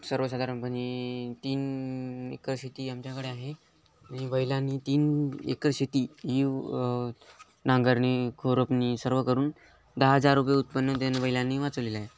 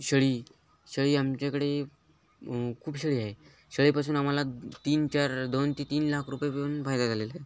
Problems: none marked